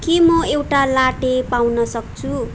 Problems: background sounds at intervals